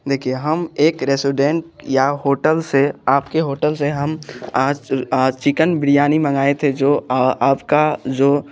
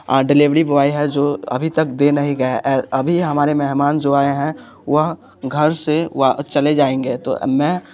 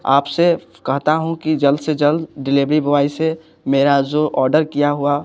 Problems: background sounds at intervals